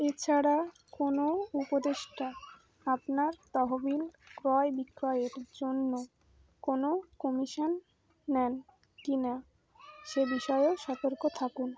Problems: background sounds at intervals, continuous background conversations